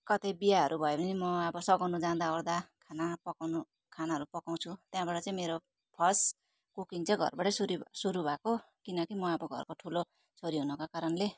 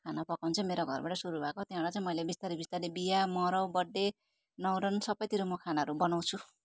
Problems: constant background noise